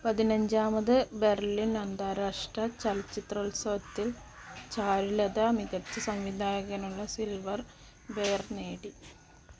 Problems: constant background noise, low volume